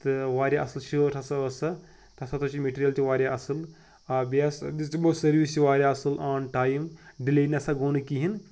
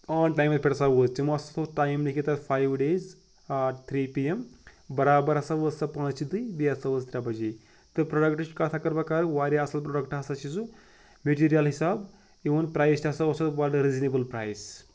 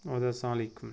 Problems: none marked